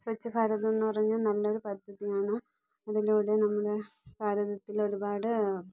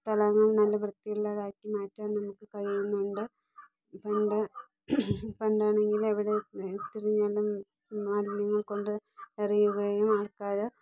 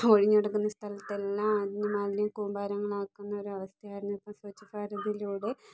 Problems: none marked